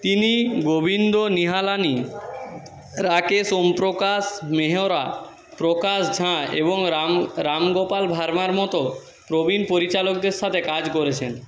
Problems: background conversations at intervals